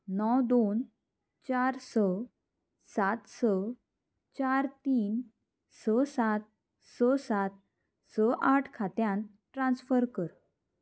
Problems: constant background noise